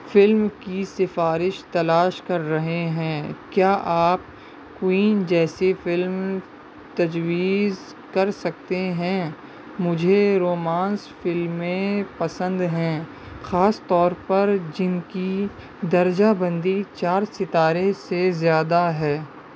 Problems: constant background noise